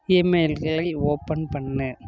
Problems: constant background noise